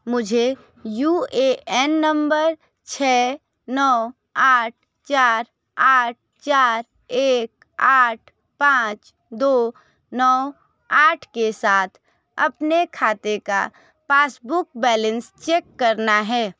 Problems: none marked